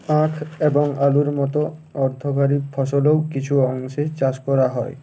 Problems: constant background noise